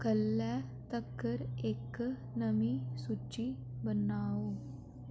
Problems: none marked